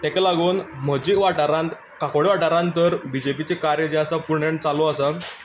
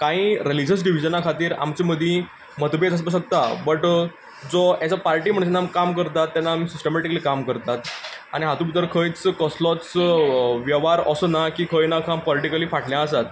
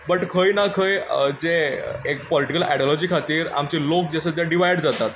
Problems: background sounds at intervals